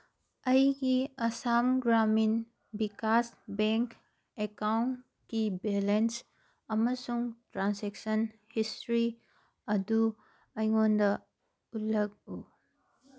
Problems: background sounds at intervals